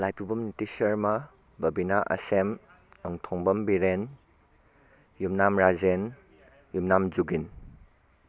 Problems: constant background noise, background conversations at intervals